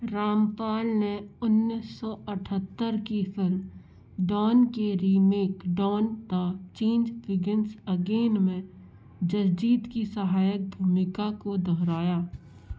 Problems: constant background noise